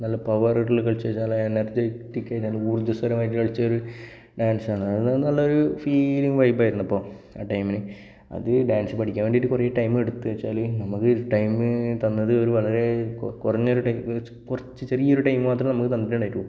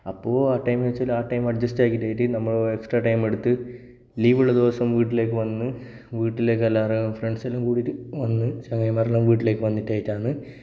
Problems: background sounds at intervals